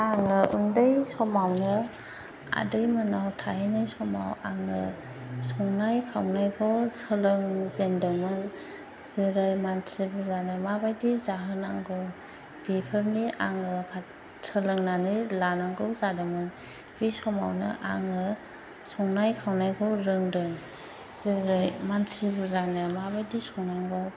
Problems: constant background noise